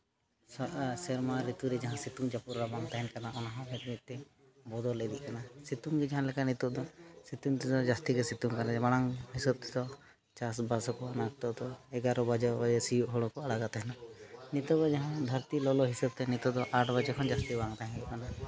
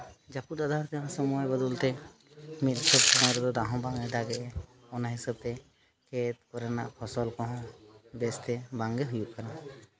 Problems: none marked